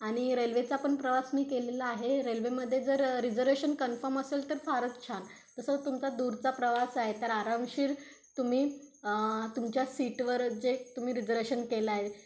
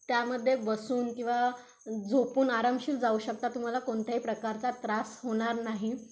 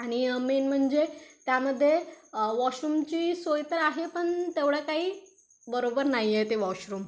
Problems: constant background noise